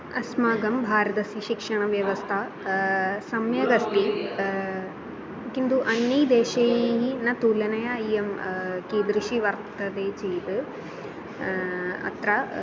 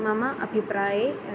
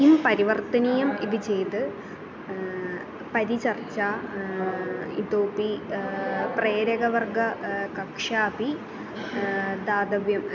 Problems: constant background noise, continuous background conversations